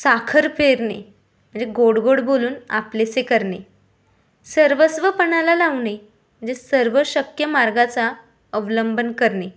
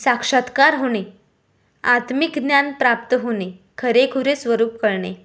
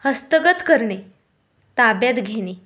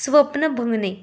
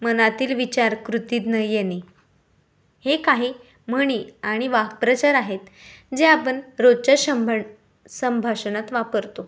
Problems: none marked